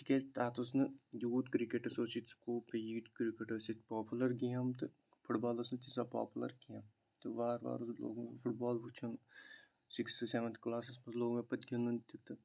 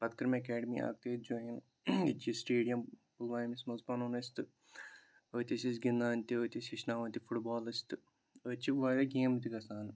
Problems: none marked